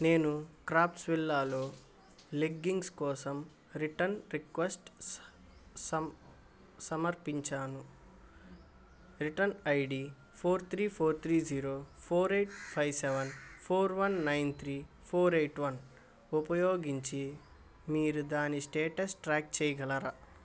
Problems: constant background noise